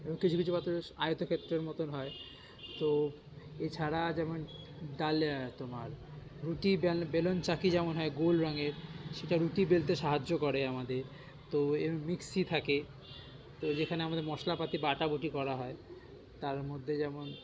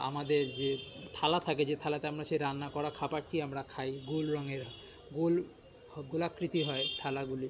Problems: constant background noise, continuous background conversations